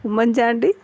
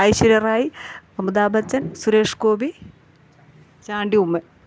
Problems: none marked